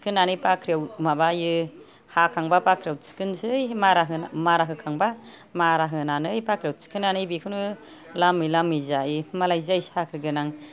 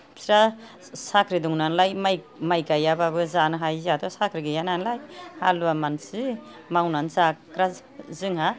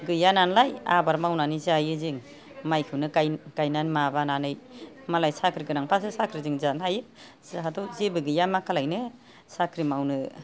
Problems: background conversations at intervals